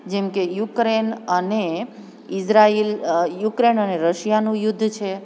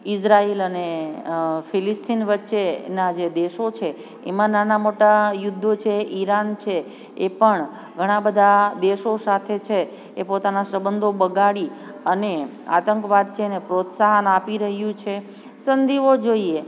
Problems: background sounds at intervals